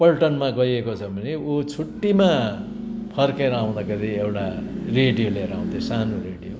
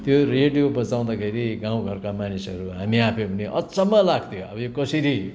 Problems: constant background noise